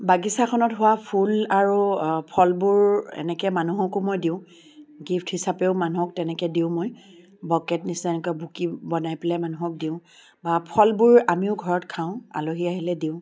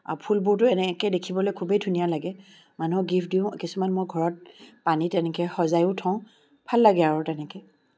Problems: background sounds at intervals